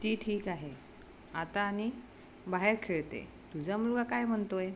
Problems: constant background noise